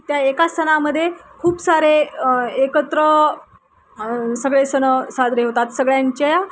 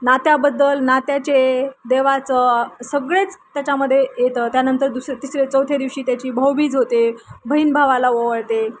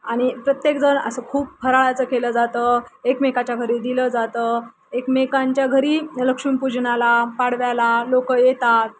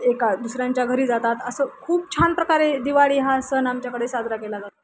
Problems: constant background noise